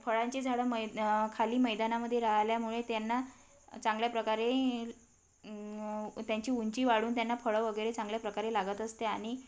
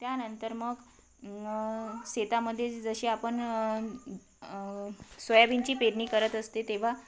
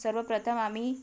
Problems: constant background noise